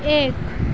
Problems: constant background noise